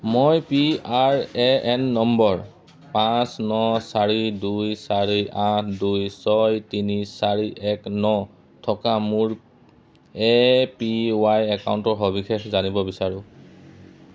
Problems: background sounds at intervals